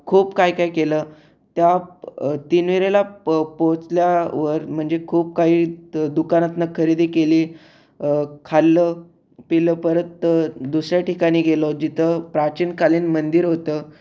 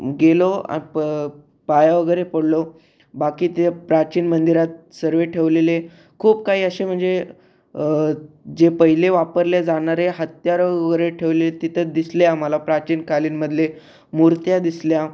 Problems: none marked